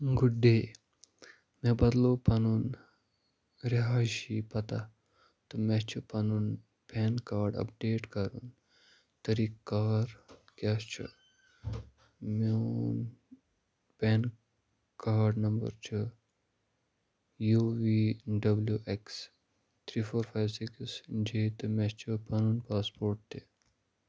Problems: none marked